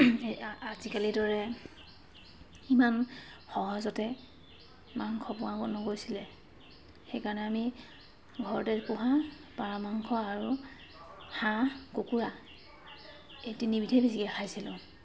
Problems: constant background noise, background conversations at intervals